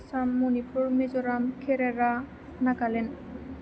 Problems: constant background noise